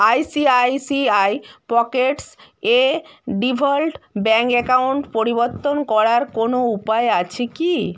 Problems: none marked